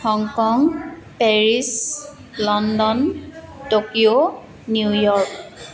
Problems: continuous background conversations